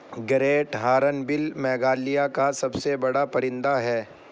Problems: constant background noise